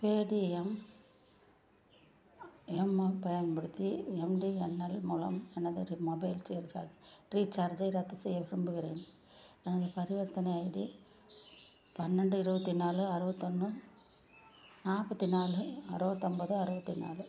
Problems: low volume